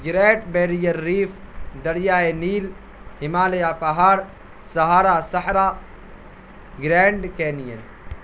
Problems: constant background noise